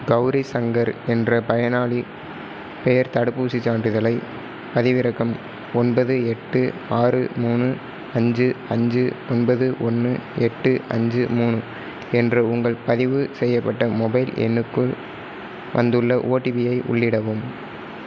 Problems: constant background noise